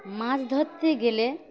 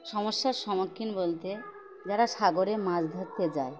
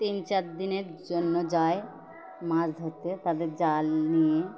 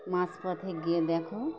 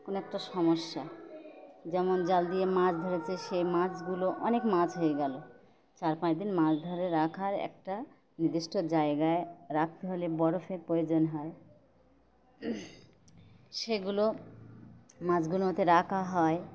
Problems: constant background noise